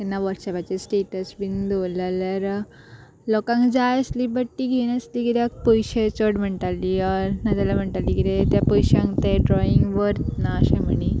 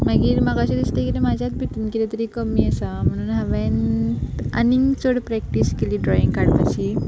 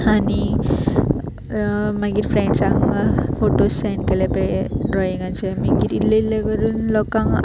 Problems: constant background noise